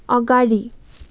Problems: none marked